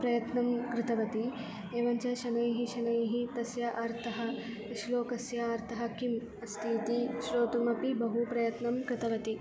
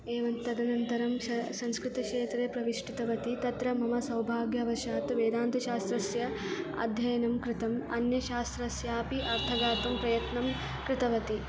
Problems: constant background noise